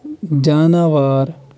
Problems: none marked